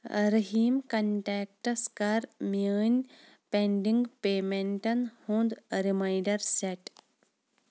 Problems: none marked